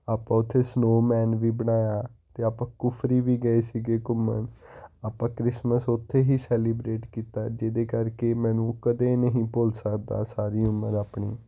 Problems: none marked